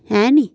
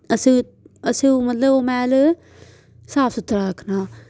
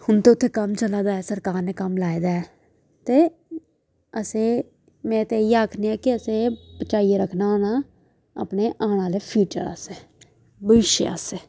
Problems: background conversations at intervals